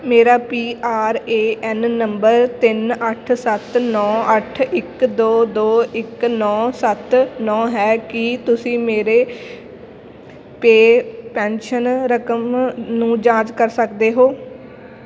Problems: none marked